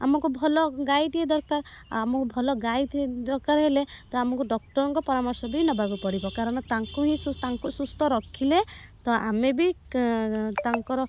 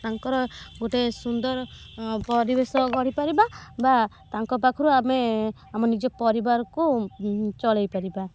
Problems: background sounds at intervals